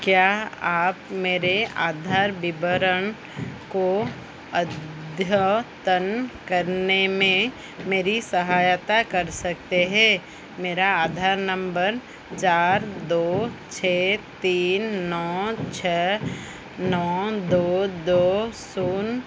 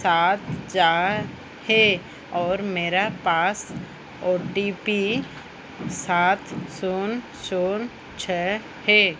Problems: constant background noise